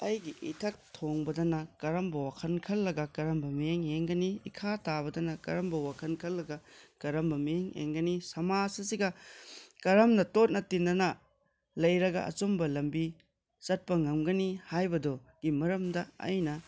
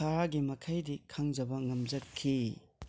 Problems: background conversations at intervals